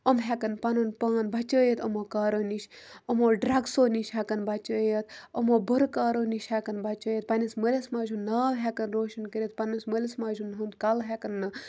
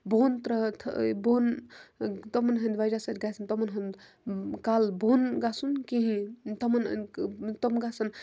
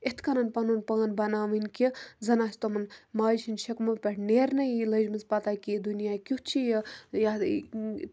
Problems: background sounds at intervals